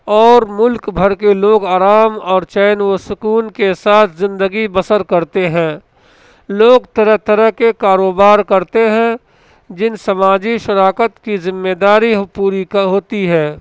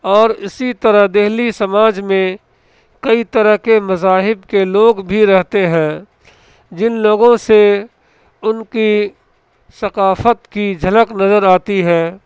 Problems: constant background noise